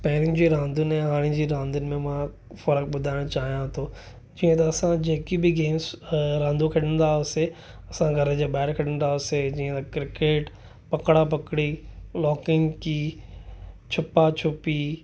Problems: none marked